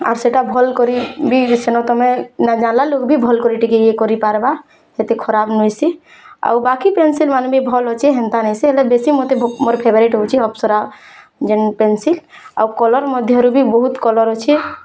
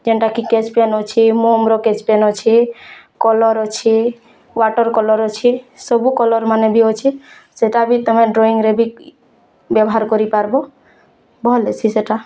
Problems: constant background noise